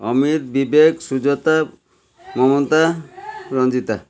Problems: constant background noise, continuous background conversations